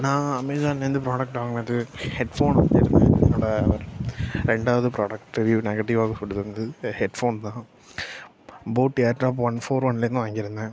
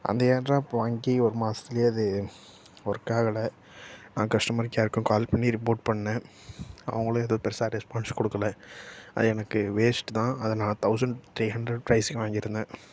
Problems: none marked